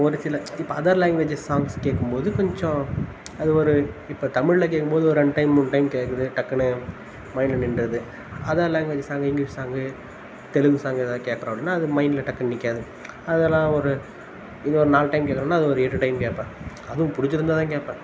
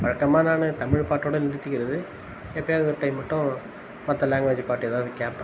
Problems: constant background noise